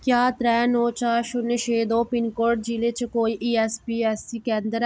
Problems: background sounds at intervals